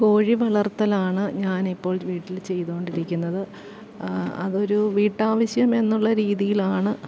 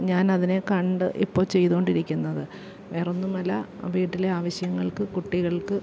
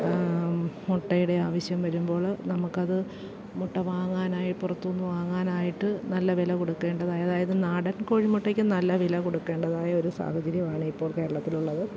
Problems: background sounds at intervals, low volume